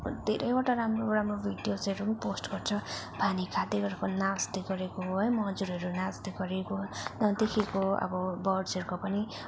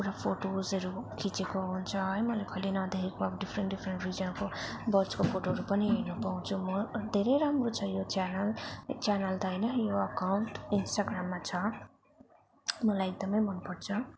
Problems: constant background noise